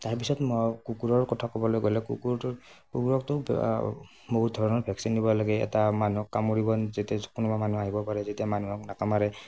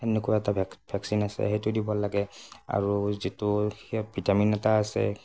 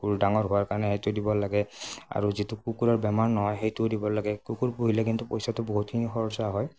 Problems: none marked